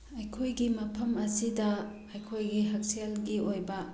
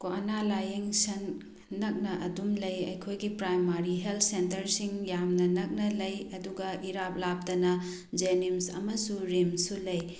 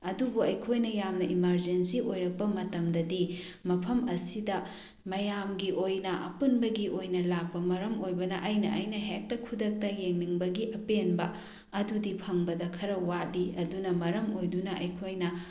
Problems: none marked